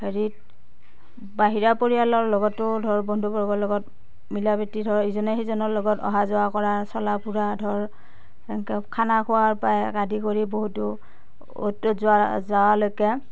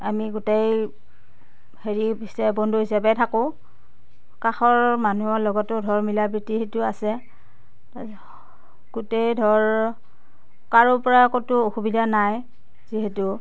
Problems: none marked